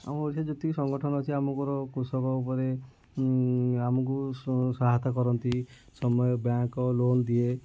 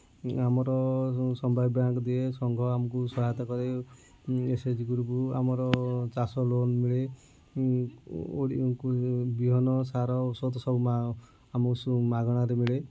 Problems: low volume